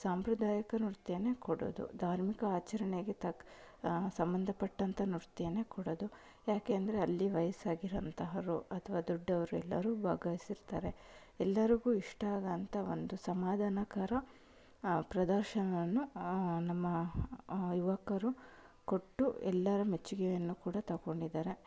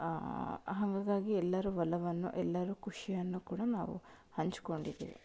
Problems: low volume